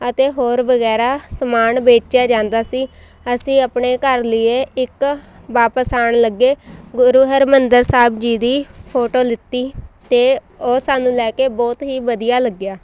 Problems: none marked